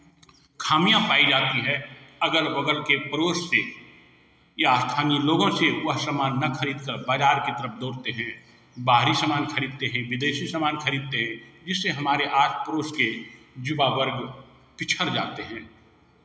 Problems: none marked